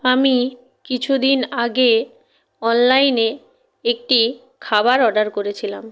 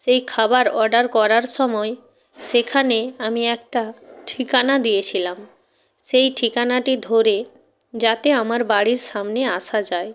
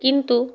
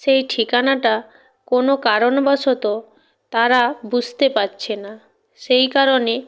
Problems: none marked